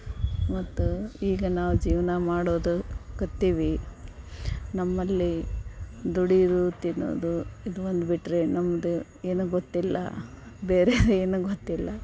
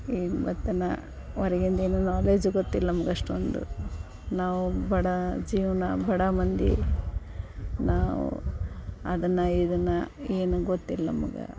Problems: background sounds at intervals